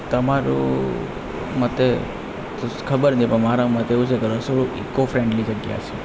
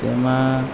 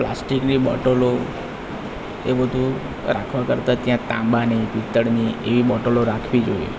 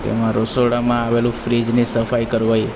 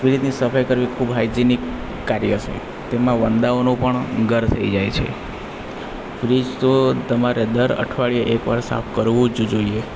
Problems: constant background noise